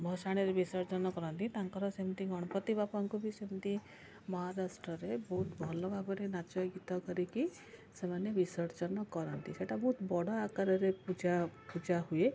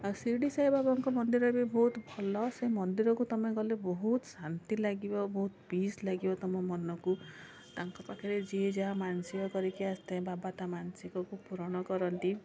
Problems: constant background noise, continuous background conversations